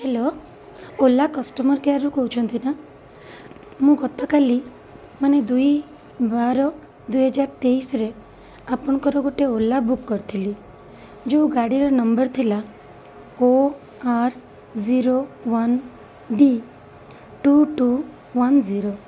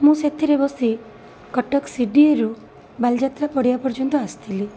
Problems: constant background noise